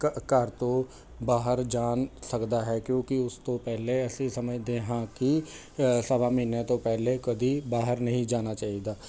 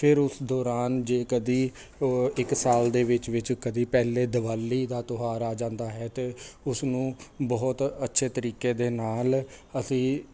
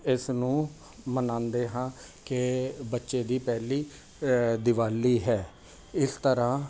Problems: constant background noise